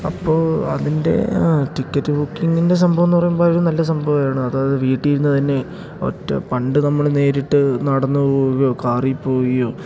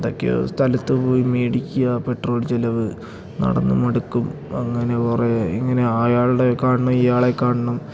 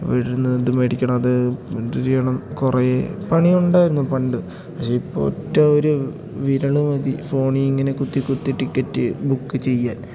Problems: none marked